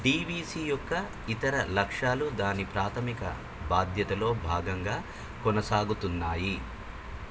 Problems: constant background noise